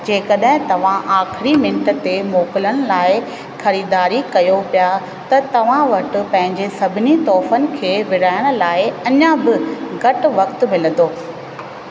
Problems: constant background noise, echo